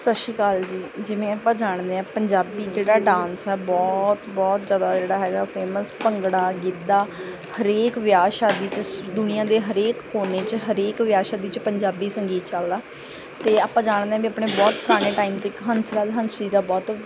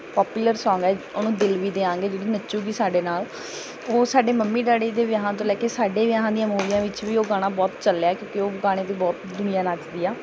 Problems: background sounds at intervals